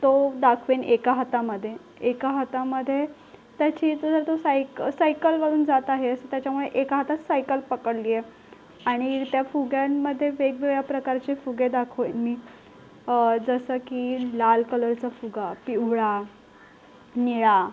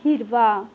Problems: none marked